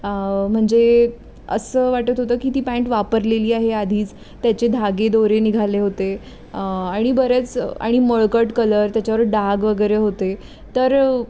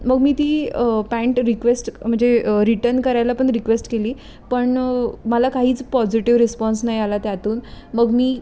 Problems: background sounds at intervals